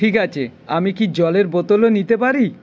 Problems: none marked